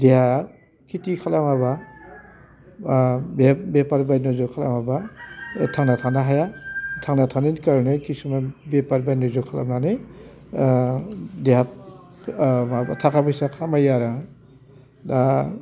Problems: constant background noise